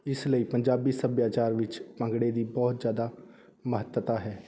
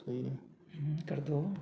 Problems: background conversations at intervals